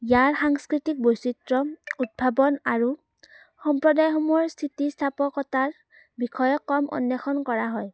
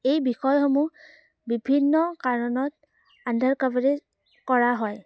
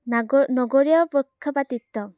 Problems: none marked